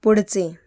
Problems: none marked